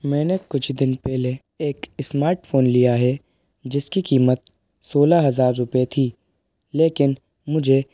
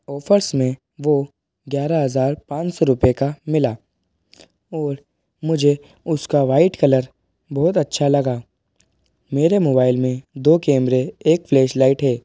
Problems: background sounds at intervals